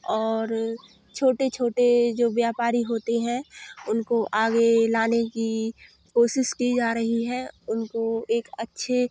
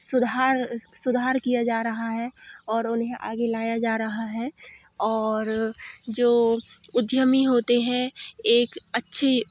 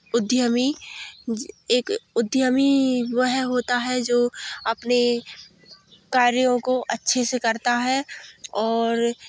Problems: none marked